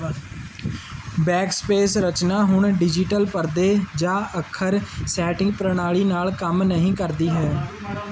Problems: background conversations at intervals